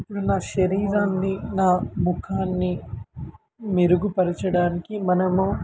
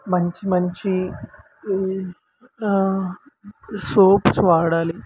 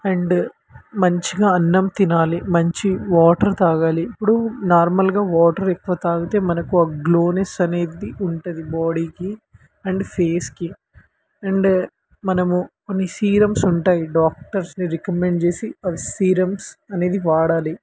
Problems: constant background noise